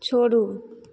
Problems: none marked